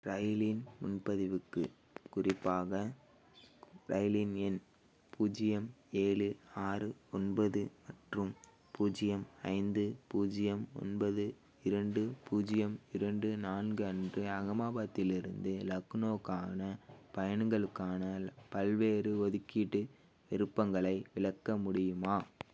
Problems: none marked